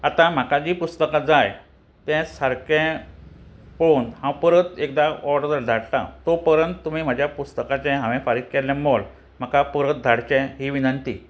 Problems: constant background noise